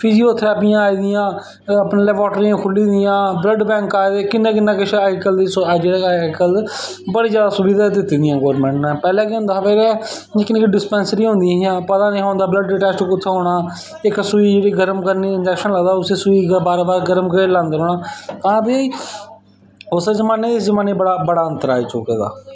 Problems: background sounds at intervals, echo